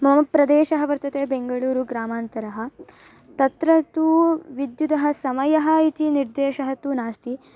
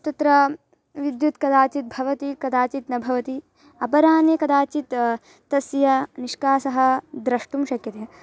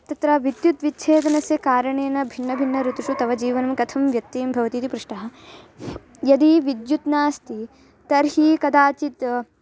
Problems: background sounds at intervals, background conversations at intervals